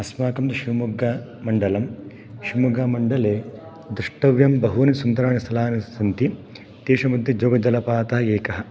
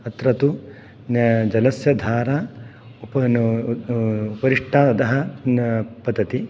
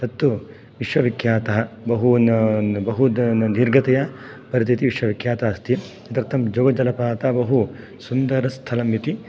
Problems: none marked